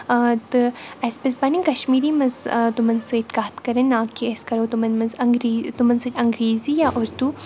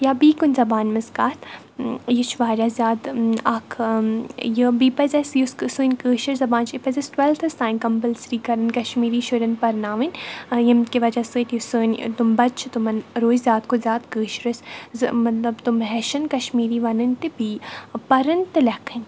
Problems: none marked